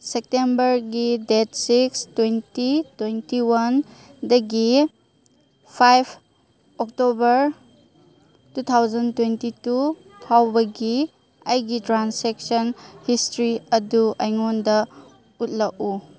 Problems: background sounds at intervals